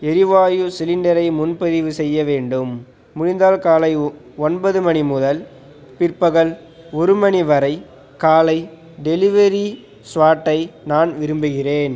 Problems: none marked